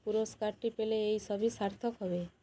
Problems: constant background noise